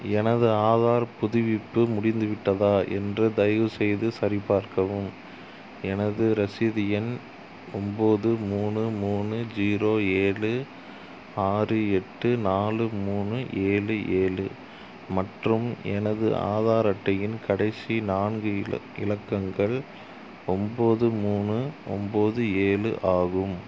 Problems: none marked